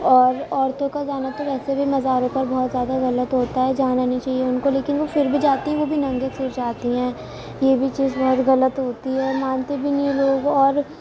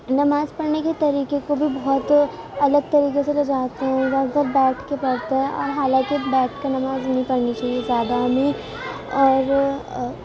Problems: constant background noise, continuous background conversations